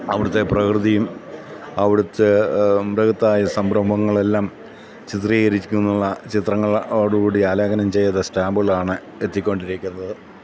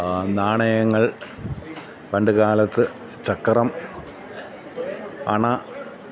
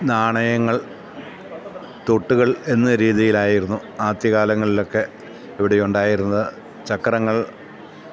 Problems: none marked